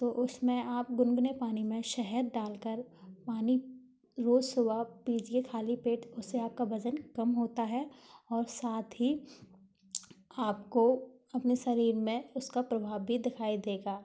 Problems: background sounds at intervals, background conversations at intervals